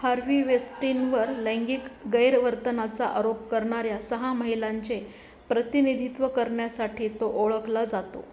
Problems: none marked